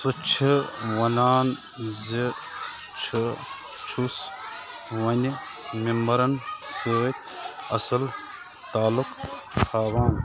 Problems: constant background noise